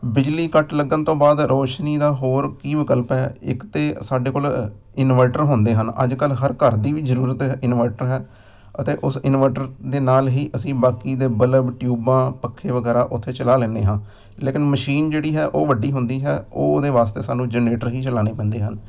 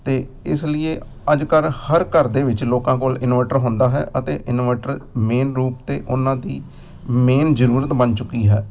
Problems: none marked